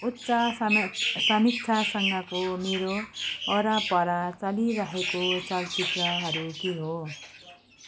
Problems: constant background noise